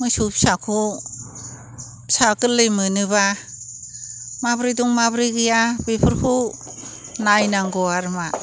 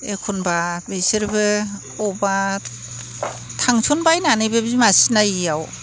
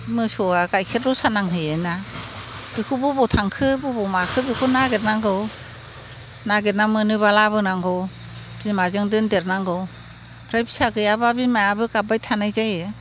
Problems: constant background noise